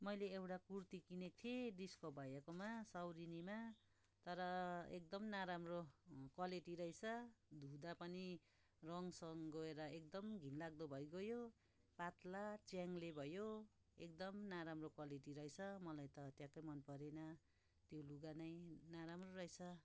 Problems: constant background noise